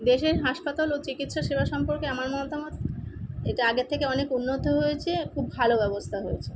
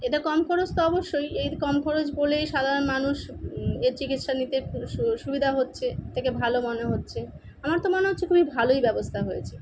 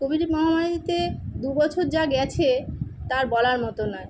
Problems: constant background noise